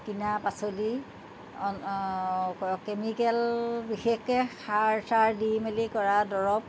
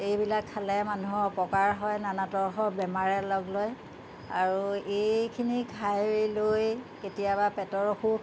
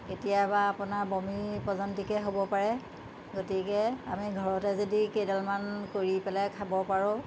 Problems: constant background noise